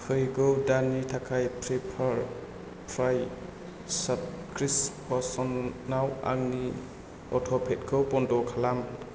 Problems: low volume